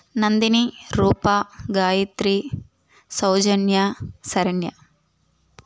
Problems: none marked